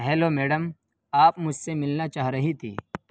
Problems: constant background noise